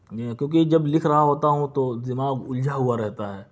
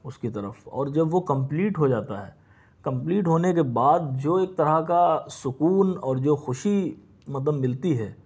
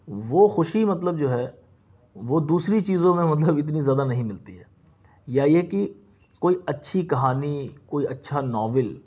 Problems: none marked